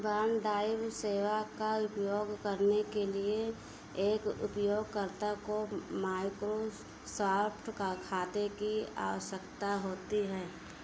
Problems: background sounds at intervals